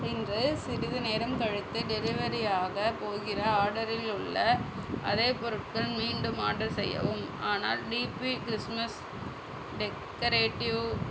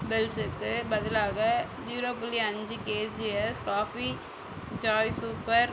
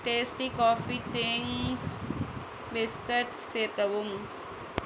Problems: constant background noise